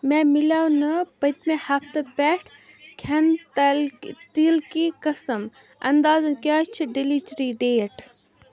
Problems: none marked